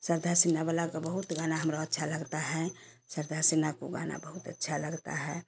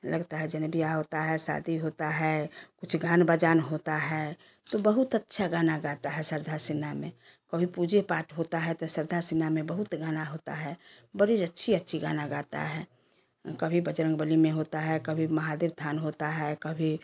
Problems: constant background noise, background conversations at intervals